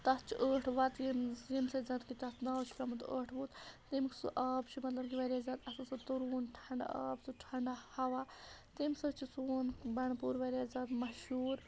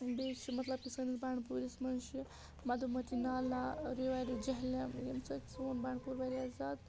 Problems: none marked